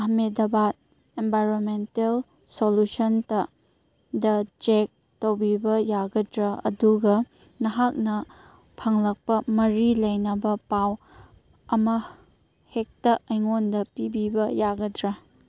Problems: none marked